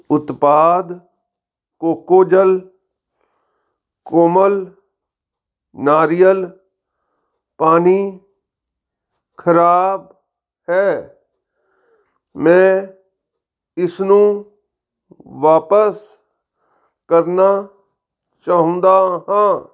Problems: background sounds at intervals